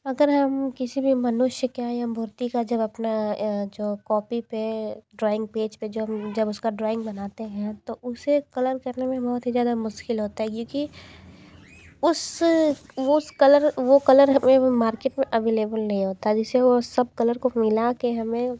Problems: background sounds at intervals